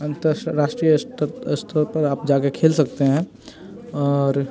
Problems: constant background noise, continuous background conversations